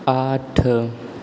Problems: constant background noise